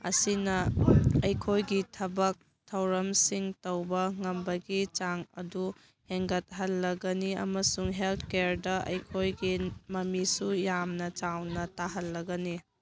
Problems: background conversations at intervals